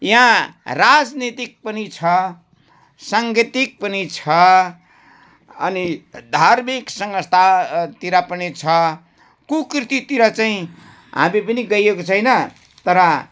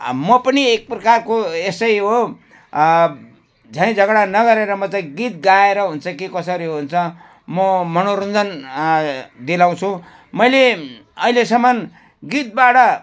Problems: background sounds at intervals